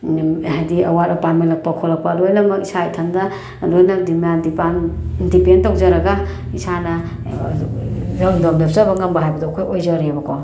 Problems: background sounds at intervals